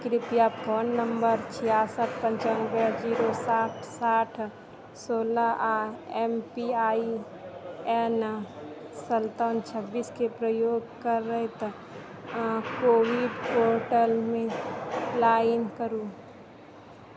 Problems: constant background noise